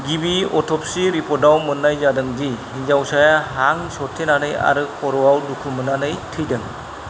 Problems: constant background noise